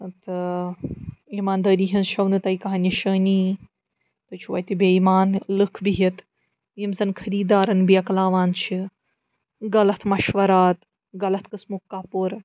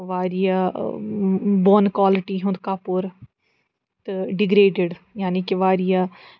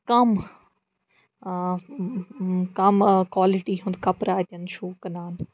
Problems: background sounds at intervals